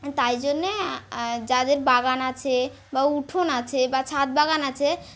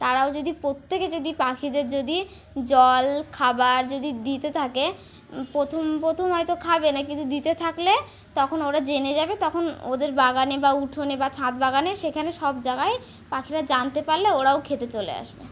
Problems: constant background noise